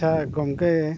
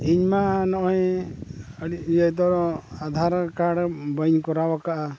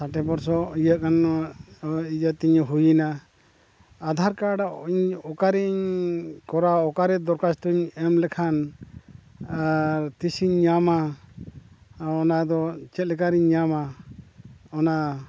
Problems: none marked